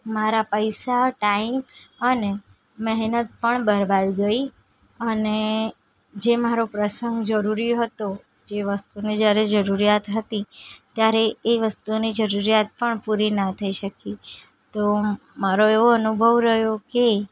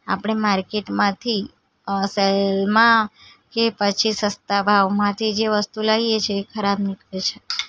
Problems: background sounds at intervals